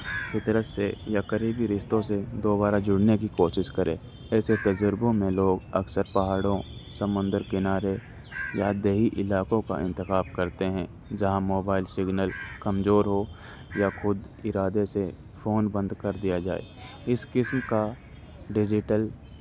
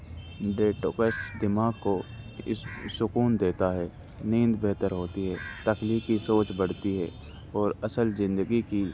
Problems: constant background noise